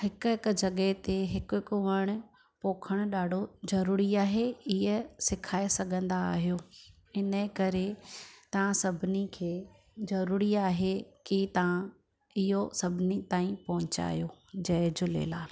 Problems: none marked